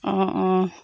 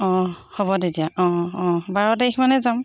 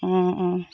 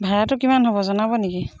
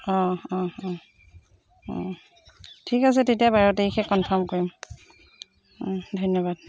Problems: constant background noise